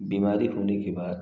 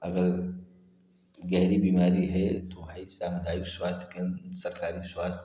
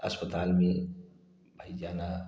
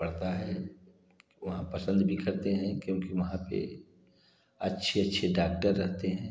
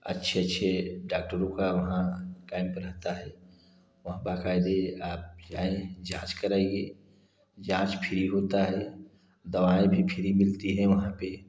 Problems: none marked